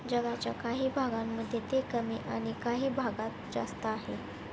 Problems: constant background noise